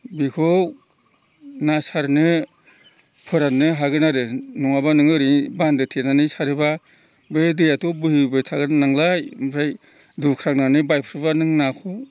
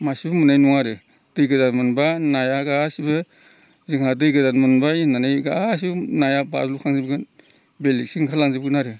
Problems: constant background noise